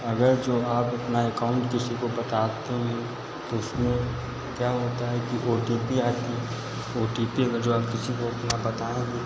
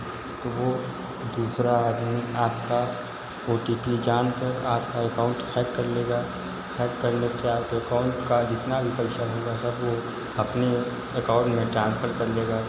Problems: constant background noise, echo